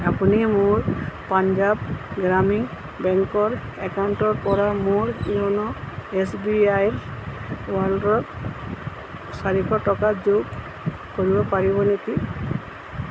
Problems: constant background noise